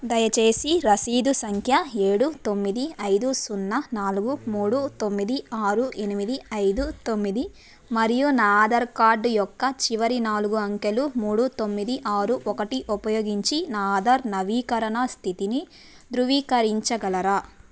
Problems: background sounds at intervals